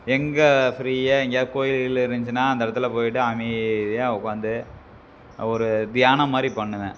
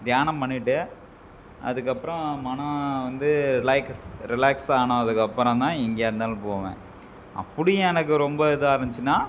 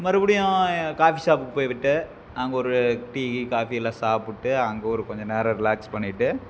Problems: background sounds at intervals